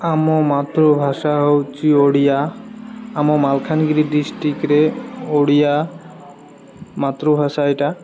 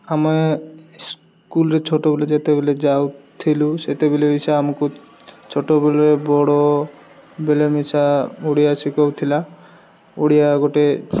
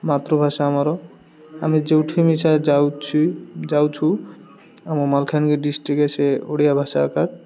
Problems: background sounds at intervals, background conversations at intervals